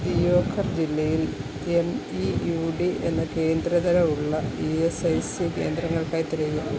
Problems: constant background noise